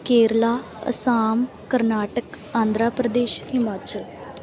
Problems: background conversations at intervals